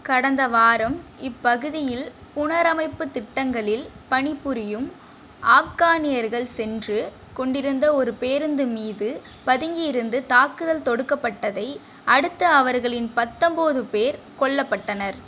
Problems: none marked